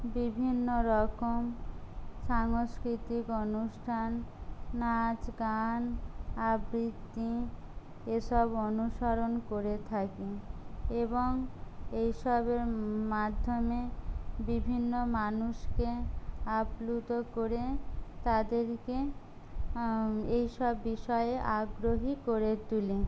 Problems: low volume